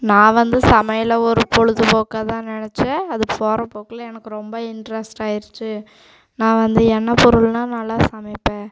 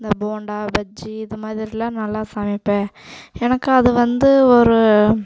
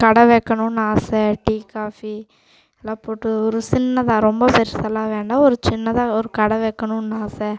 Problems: background sounds at intervals